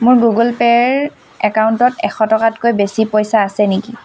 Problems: none marked